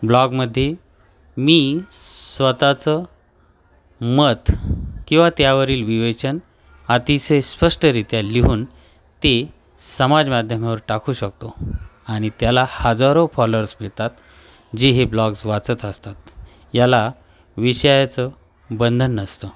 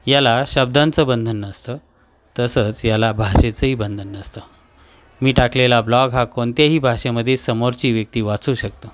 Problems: none marked